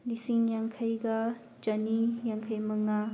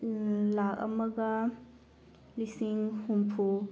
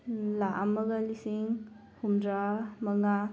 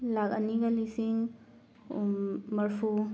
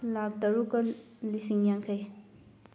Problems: none marked